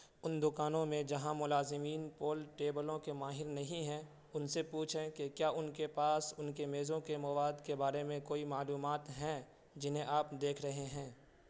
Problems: constant background noise